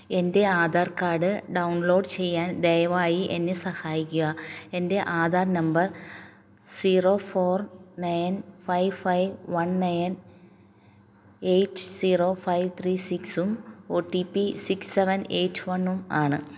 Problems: low volume